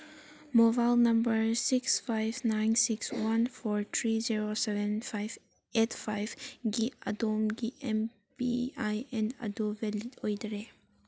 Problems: background sounds at intervals